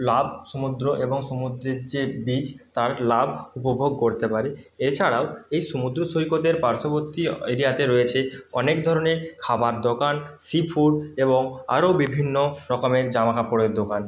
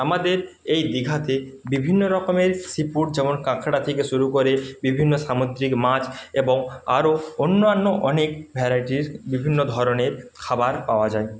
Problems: none marked